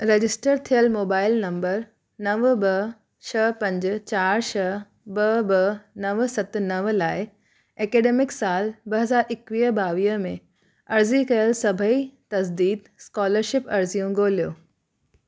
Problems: none marked